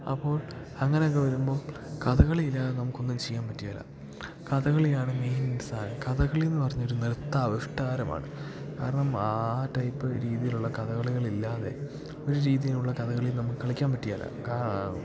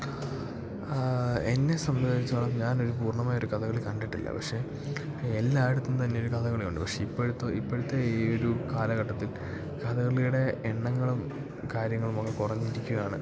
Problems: background sounds at intervals, low volume